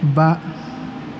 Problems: constant background noise